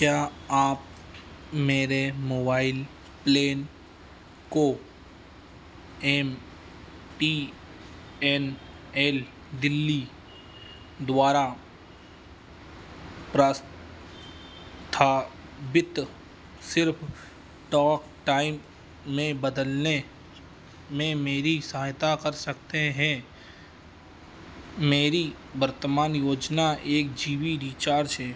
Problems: none marked